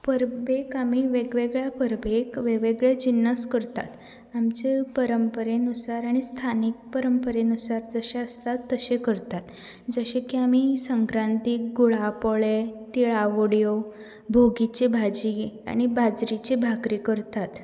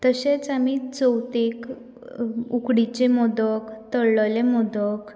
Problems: none marked